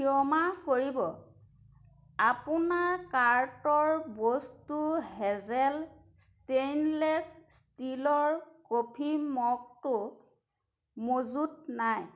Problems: none marked